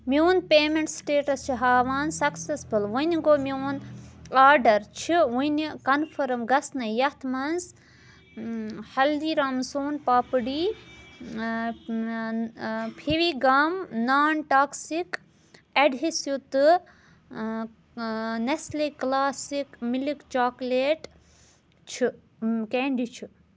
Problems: none marked